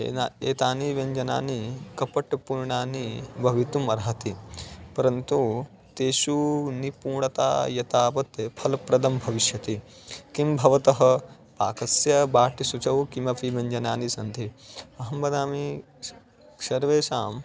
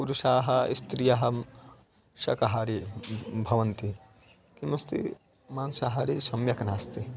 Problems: constant background noise, background conversations at intervals